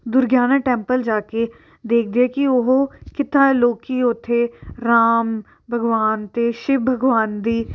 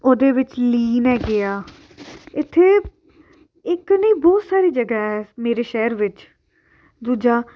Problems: background sounds at intervals